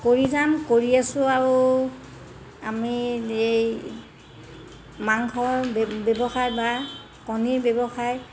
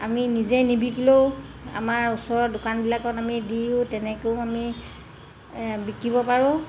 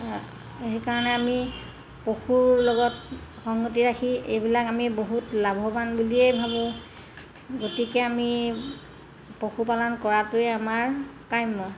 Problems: constant background noise